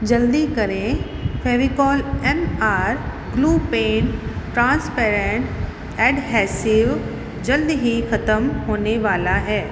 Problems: constant background noise, echo